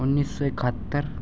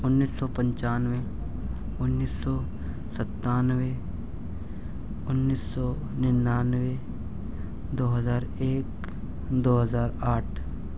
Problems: constant background noise, low volume